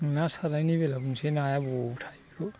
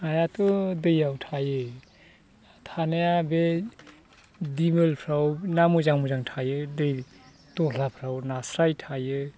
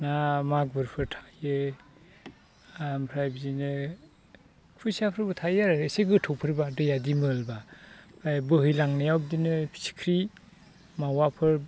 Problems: constant background noise